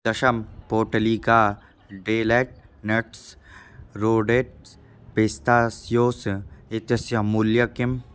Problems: none marked